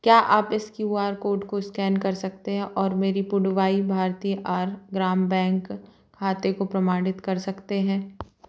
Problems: background sounds at intervals